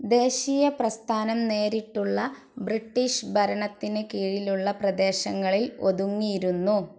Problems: none marked